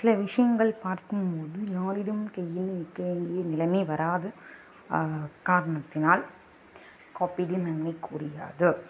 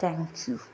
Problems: constant background noise, background conversations at intervals